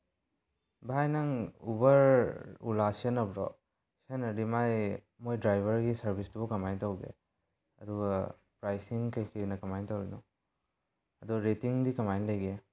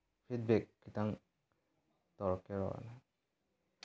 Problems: none marked